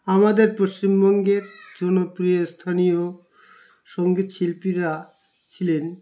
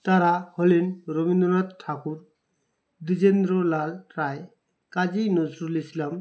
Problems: none marked